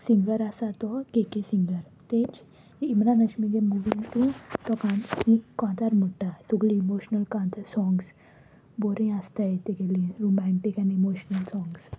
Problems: none marked